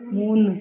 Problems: none marked